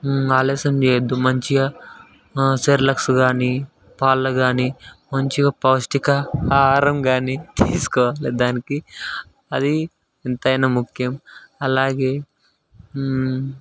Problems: constant background noise